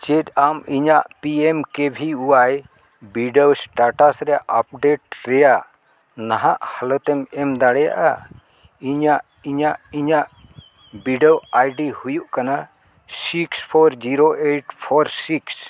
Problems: none marked